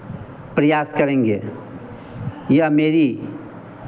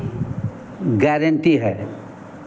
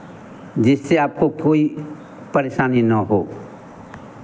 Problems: none marked